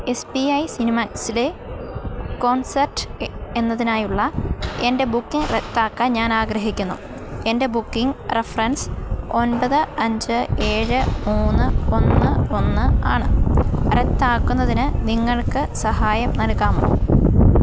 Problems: background sounds at intervals